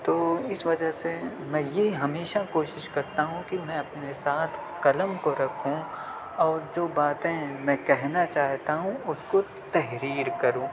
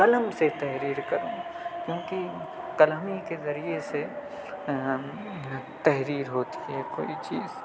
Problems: none marked